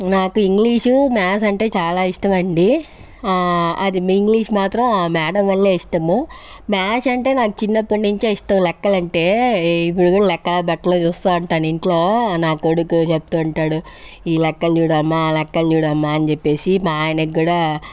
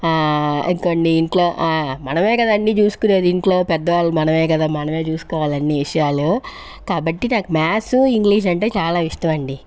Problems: background sounds at intervals